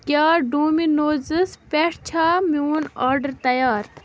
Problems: none marked